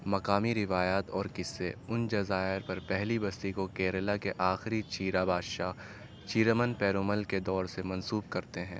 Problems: constant background noise